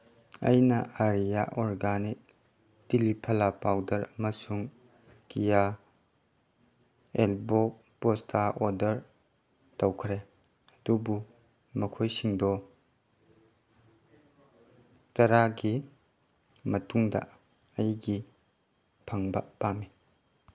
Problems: none marked